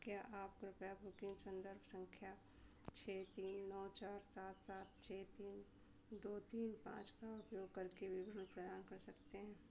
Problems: constant background noise, low volume